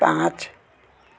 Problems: background conversations at intervals